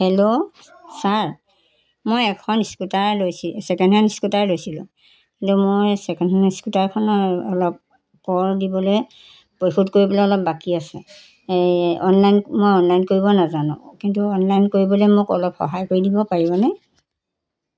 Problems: none marked